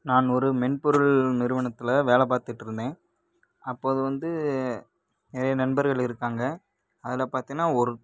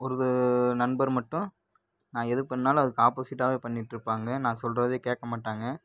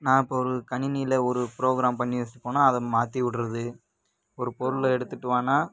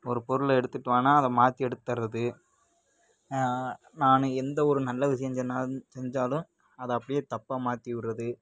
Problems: none marked